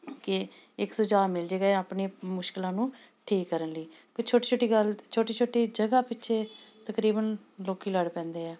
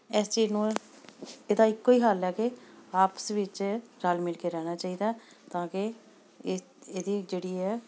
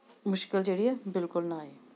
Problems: none marked